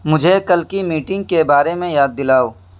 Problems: constant background noise